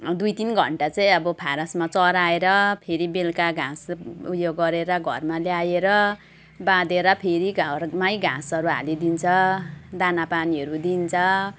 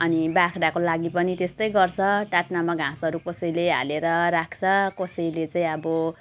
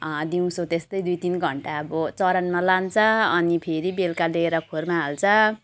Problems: constant background noise